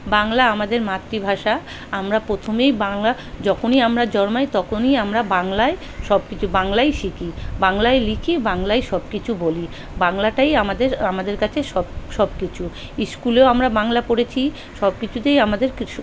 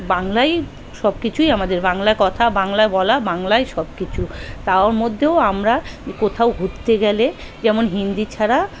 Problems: continuous background conversations